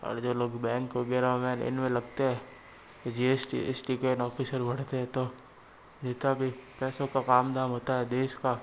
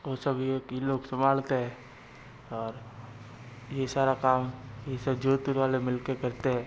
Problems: constant background noise